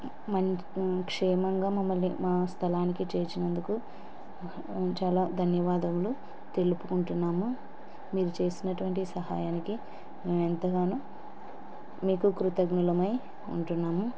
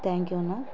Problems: constant background noise